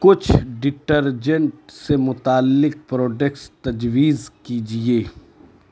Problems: constant background noise